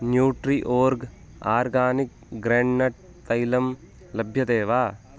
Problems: constant background noise